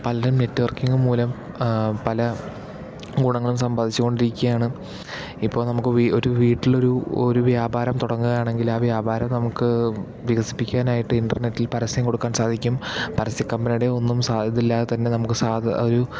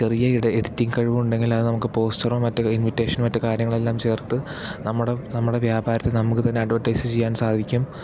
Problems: none marked